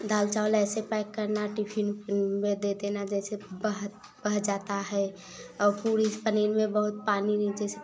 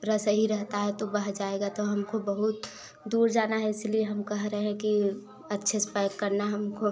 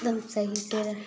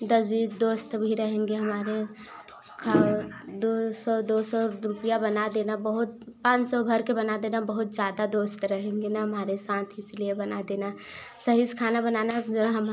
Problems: background sounds at intervals